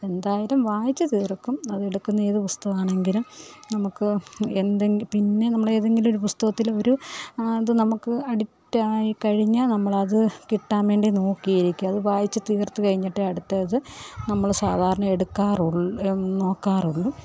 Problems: none marked